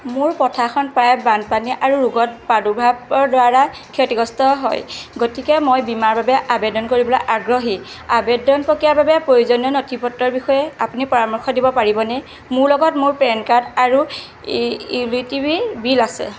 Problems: constant background noise